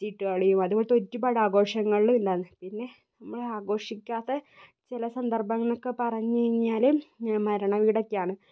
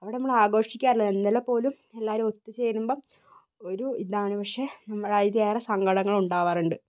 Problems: low volume